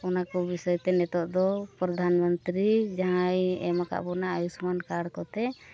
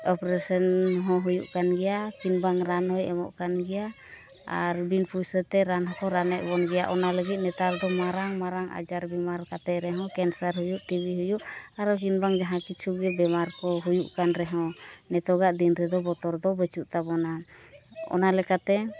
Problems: continuous background conversations